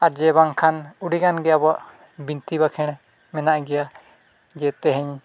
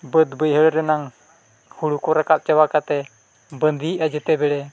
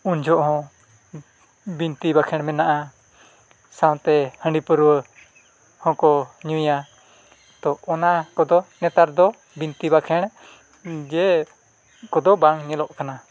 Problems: none marked